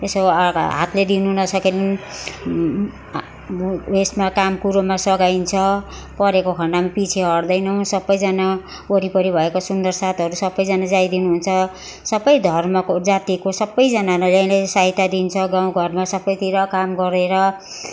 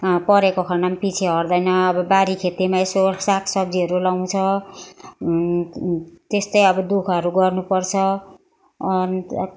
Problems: constant background noise